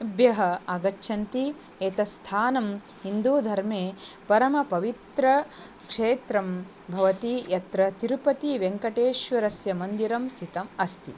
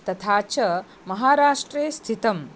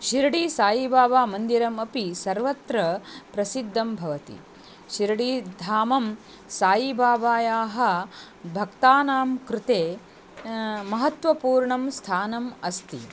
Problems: none marked